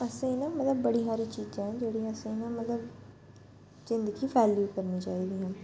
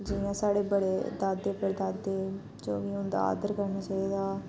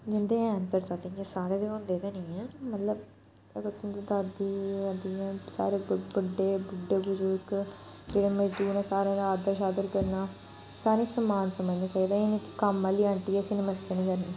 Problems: background sounds at intervals